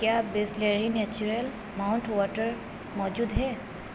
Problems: constant background noise